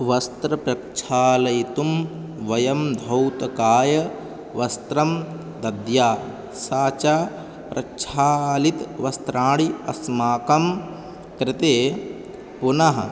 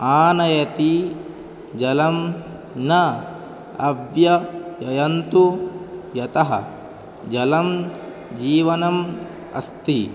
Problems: constant background noise